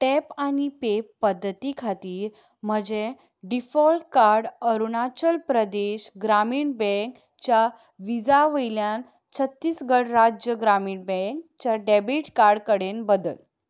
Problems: background sounds at intervals